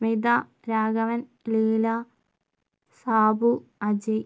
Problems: none marked